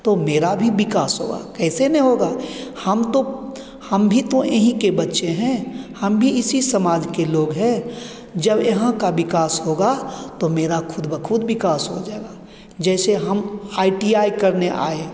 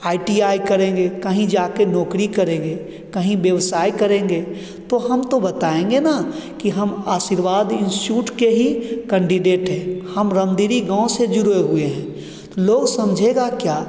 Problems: none marked